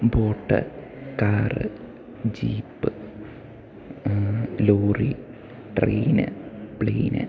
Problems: none marked